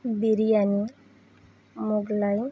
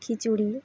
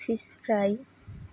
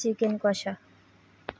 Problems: none marked